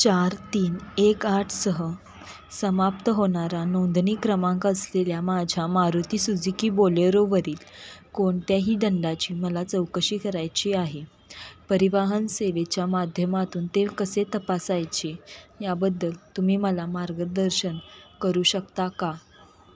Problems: constant background noise